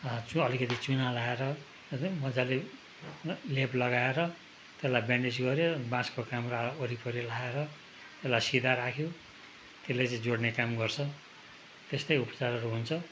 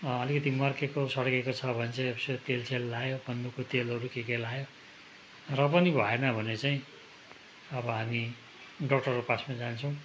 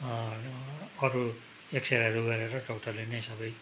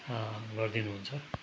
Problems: constant background noise